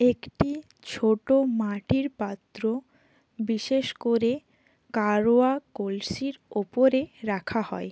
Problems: none marked